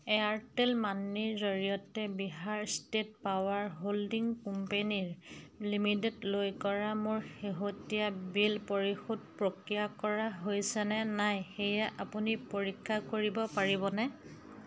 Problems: constant background noise, background conversations at intervals